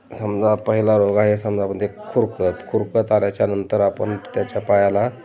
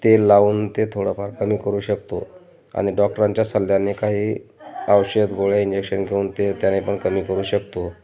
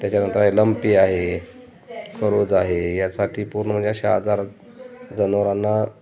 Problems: constant background noise, continuous background conversations